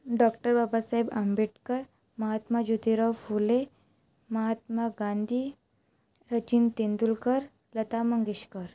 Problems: none marked